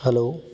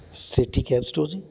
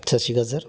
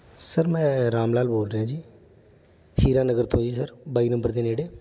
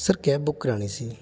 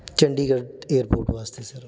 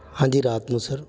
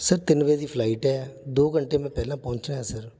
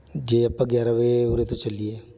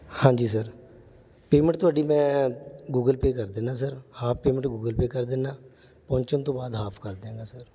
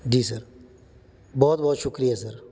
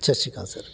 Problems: background sounds at intervals